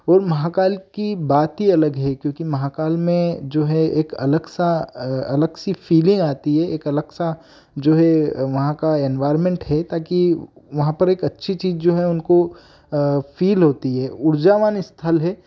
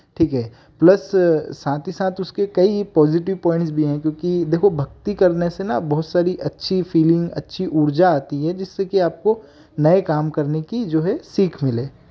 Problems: background sounds at intervals